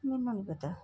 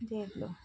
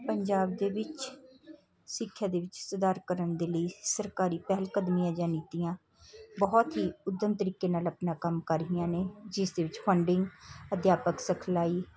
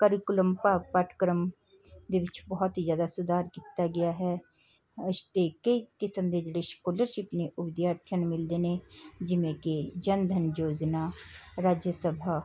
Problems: constant background noise, background conversations at intervals